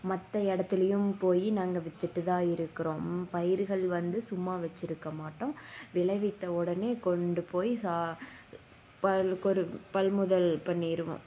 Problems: none marked